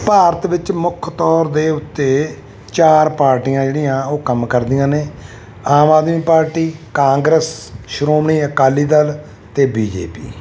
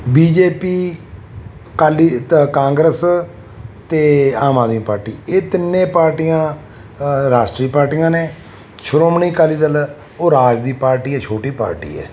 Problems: none marked